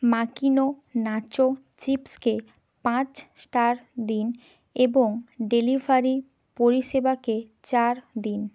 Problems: background sounds at intervals